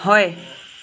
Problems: none marked